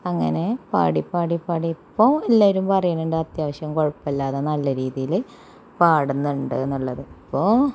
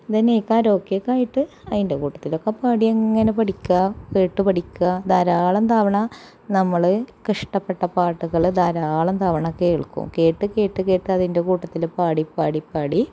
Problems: none marked